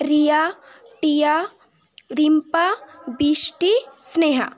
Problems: continuous background conversations